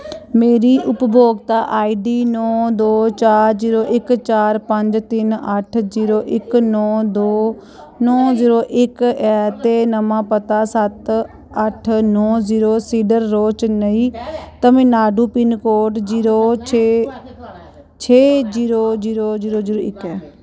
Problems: none marked